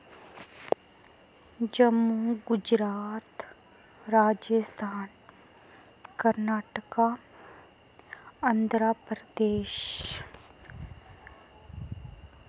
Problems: none marked